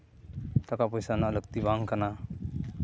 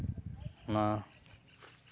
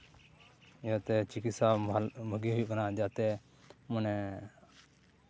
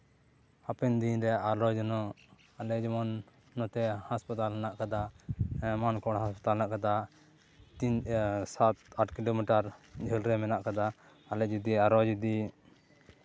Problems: none marked